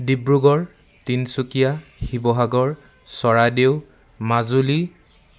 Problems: constant background noise